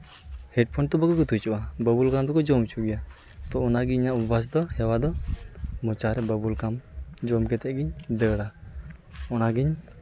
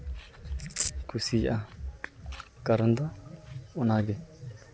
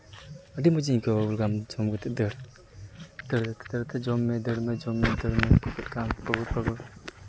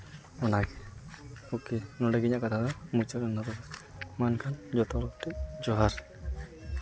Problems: none marked